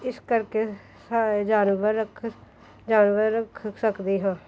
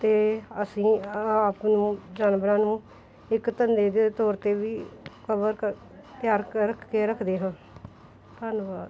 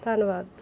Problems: none marked